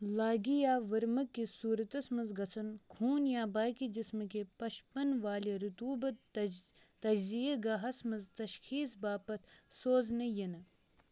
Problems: none marked